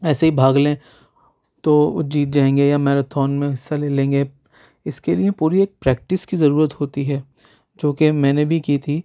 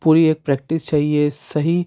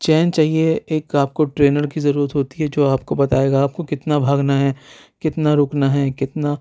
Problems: none marked